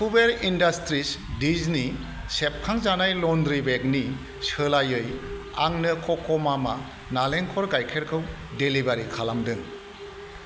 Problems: none marked